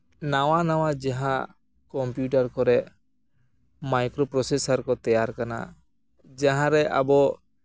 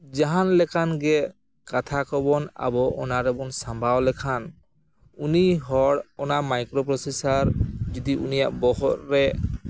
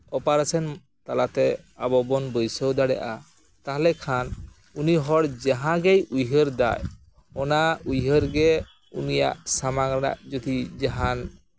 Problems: background sounds at intervals